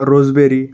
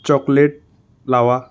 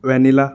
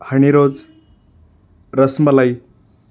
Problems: background sounds at intervals